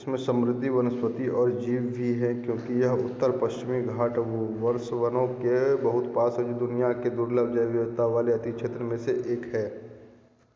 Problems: constant background noise, low volume